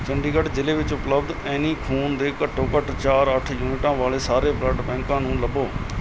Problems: none marked